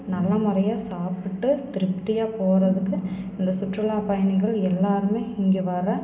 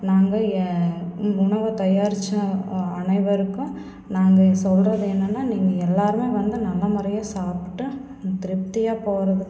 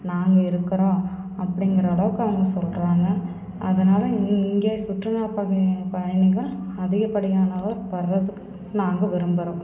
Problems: constant background noise